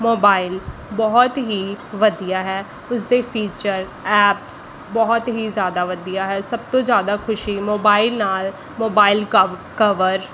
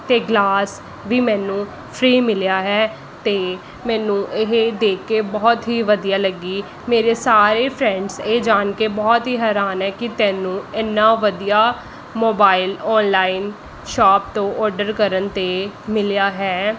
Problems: constant background noise